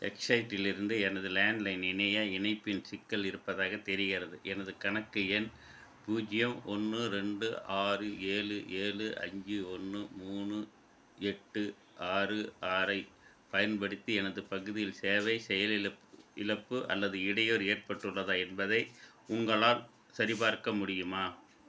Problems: background sounds at intervals